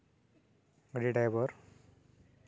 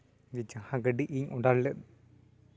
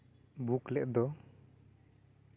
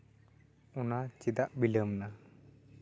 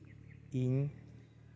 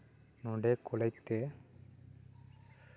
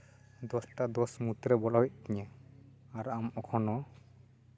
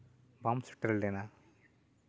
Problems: none marked